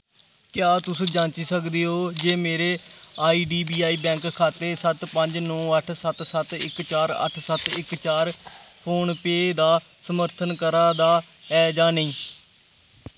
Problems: background sounds at intervals